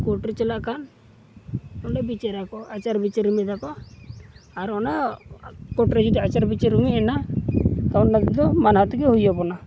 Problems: background sounds at intervals